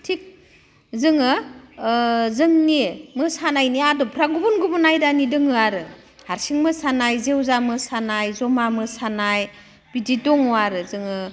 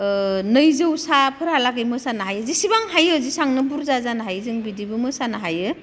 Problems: none marked